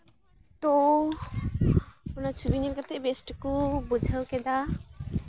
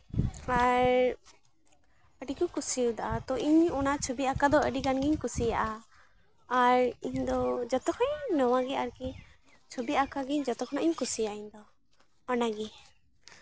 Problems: constant background noise, background conversations at intervals